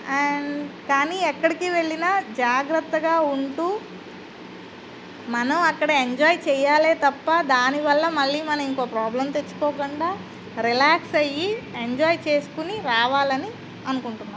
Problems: constant background noise